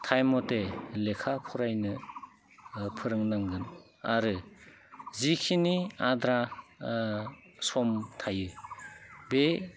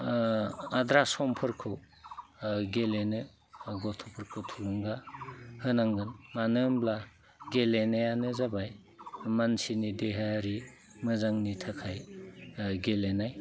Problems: constant background noise